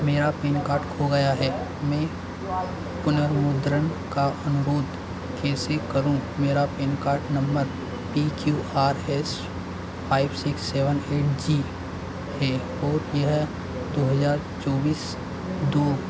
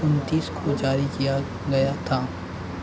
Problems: constant background noise